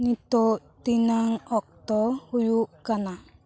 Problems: continuous background conversations